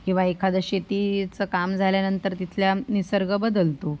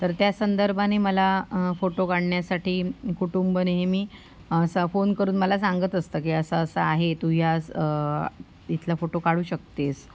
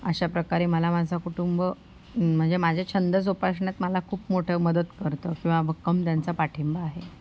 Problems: none marked